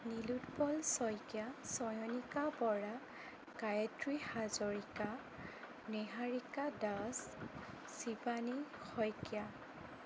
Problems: constant background noise